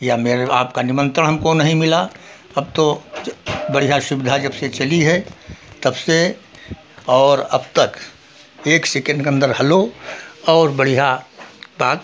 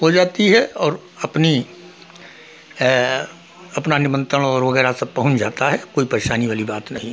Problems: background sounds at intervals